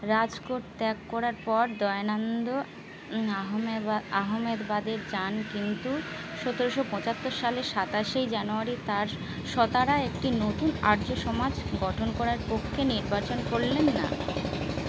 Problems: constant background noise